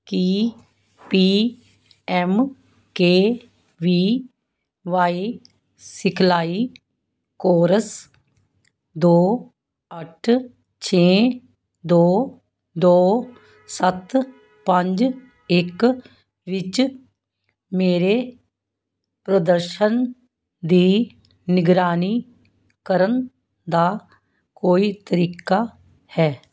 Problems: none marked